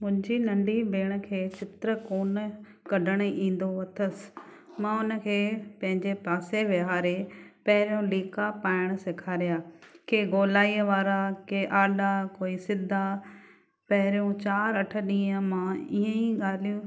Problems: none marked